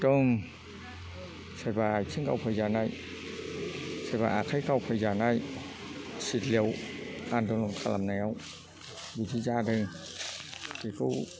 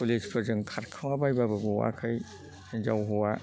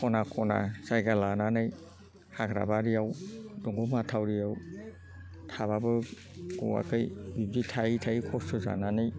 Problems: constant background noise